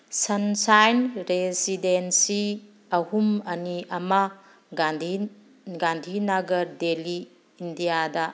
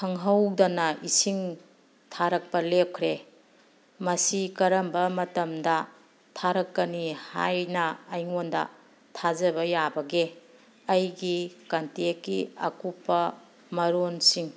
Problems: background sounds at intervals